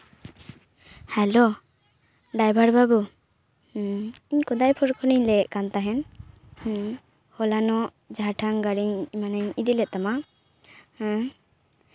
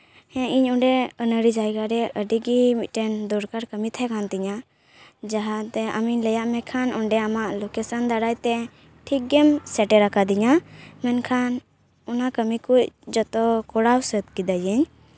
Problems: constant background noise